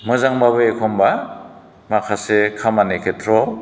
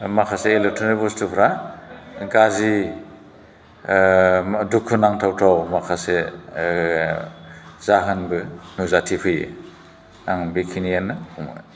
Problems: none marked